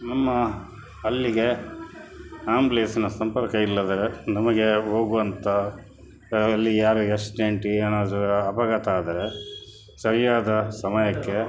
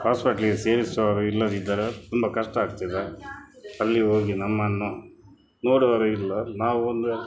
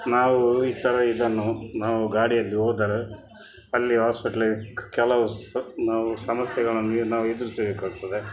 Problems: background sounds at intervals